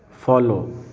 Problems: background sounds at intervals